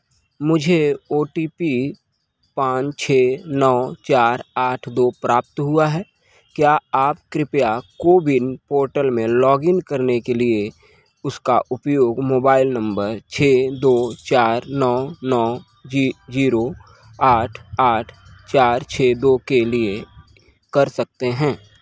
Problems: background sounds at intervals